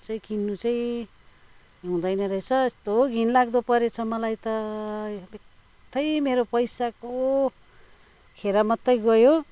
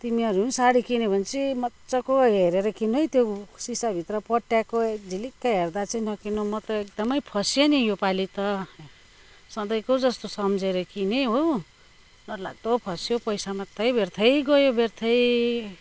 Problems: none marked